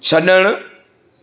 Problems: none marked